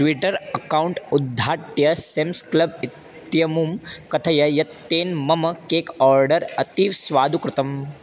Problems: constant background noise